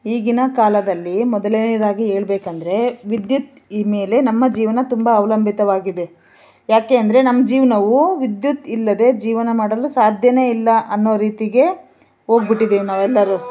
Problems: background sounds at intervals